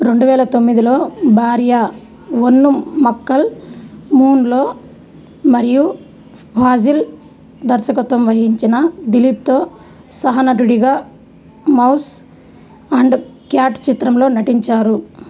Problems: background sounds at intervals